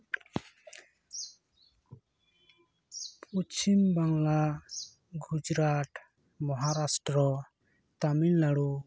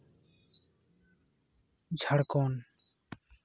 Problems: none marked